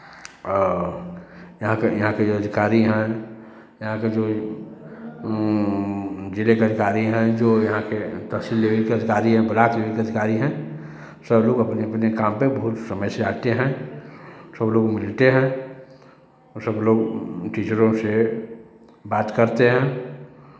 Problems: none marked